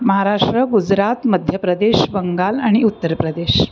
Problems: background sounds at intervals